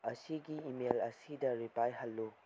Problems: low volume